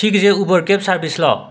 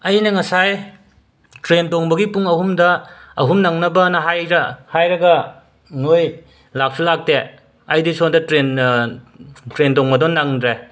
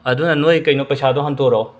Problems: background conversations at intervals